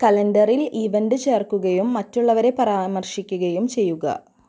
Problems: low volume